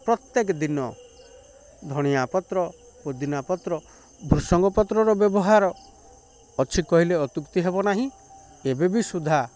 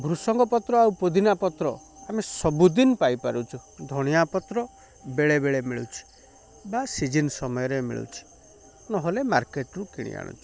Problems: constant background noise